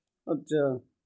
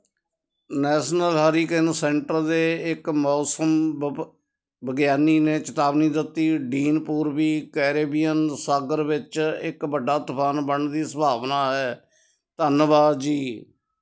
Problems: constant background noise